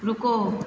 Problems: constant background noise